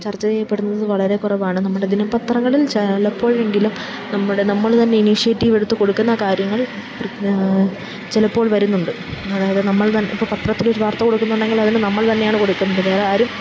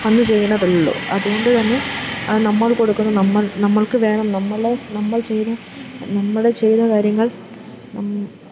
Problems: background sounds at intervals, low volume